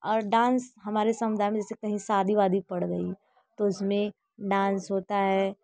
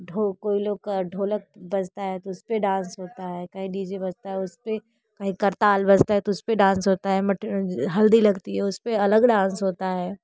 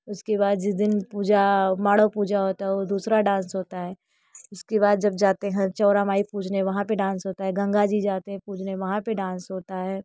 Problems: constant background noise